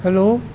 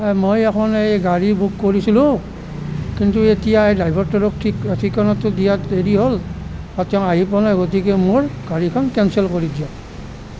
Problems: none marked